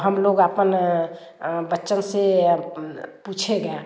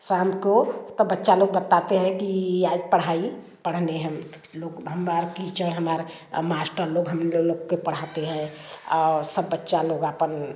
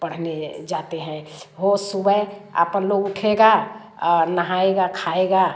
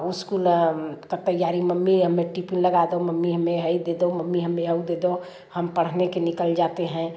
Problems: constant background noise, background conversations at intervals, echo